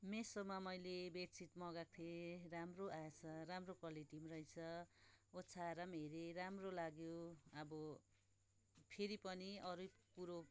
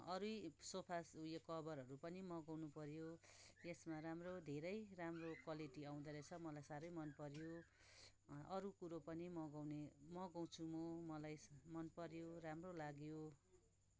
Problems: background sounds at intervals, background conversations at intervals